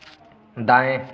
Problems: none marked